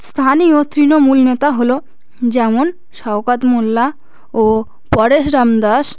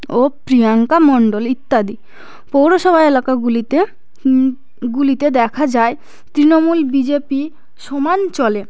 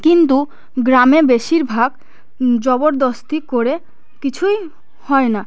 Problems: none marked